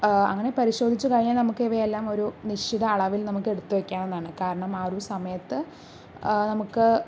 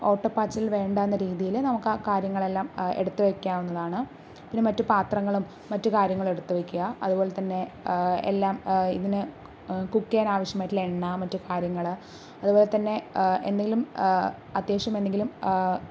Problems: none marked